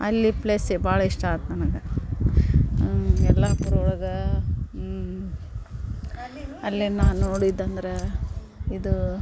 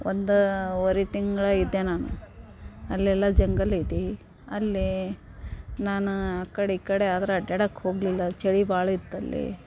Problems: none marked